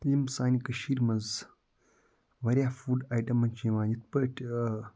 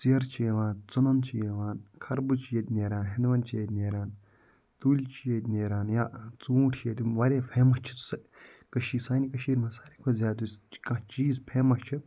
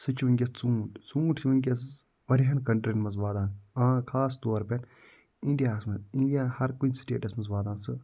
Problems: none marked